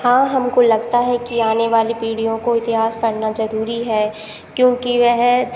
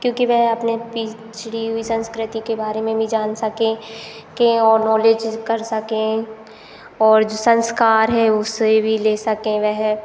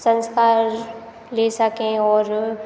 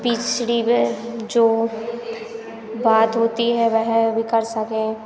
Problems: constant background noise